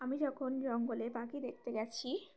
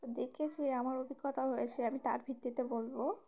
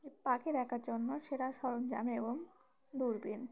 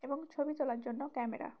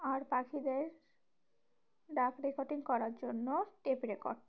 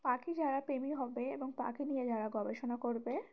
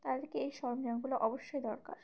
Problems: background sounds at intervals